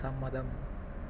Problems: background sounds at intervals, low volume